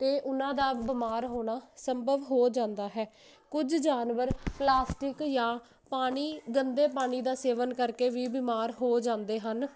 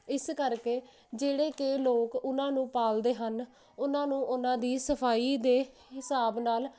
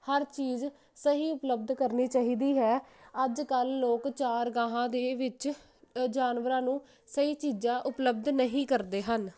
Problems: none marked